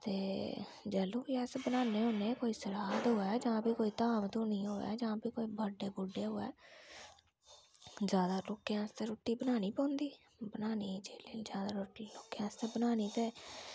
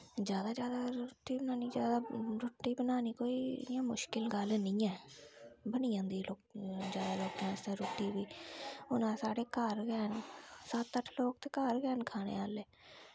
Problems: low volume